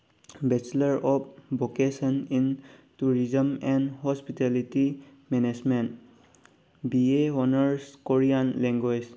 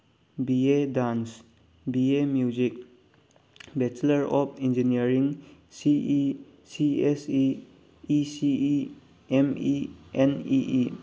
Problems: none marked